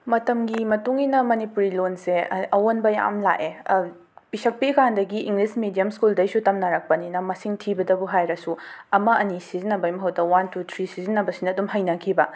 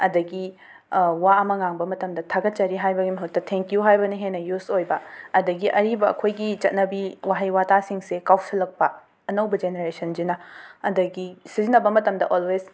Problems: none marked